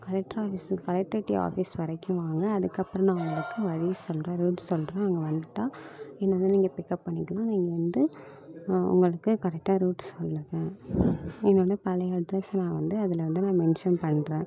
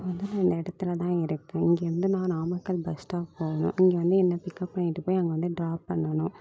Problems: continuous background conversations